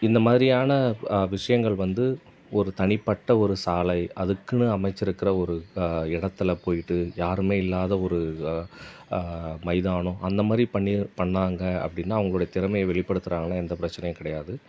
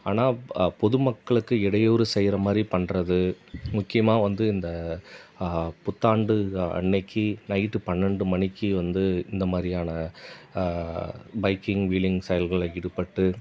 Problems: none marked